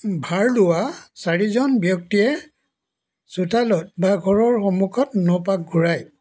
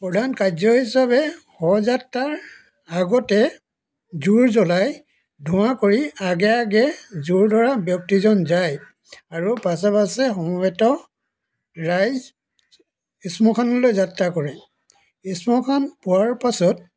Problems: background sounds at intervals